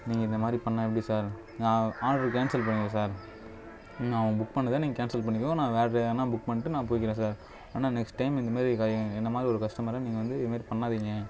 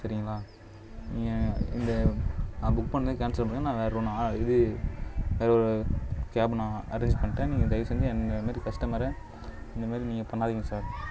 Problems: background sounds at intervals, low volume